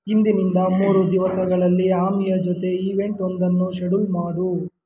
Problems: background sounds at intervals